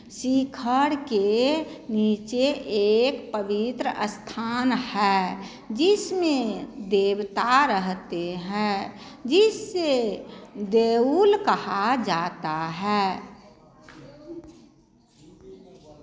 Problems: none marked